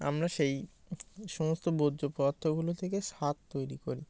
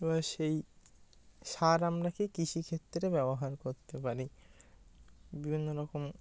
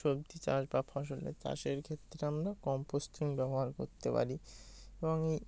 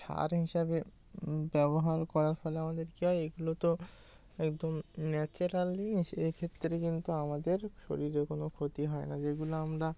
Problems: constant background noise